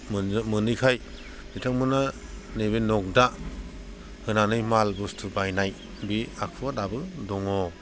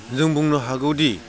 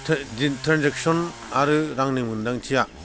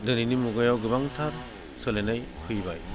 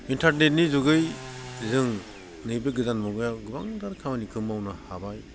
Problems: constant background noise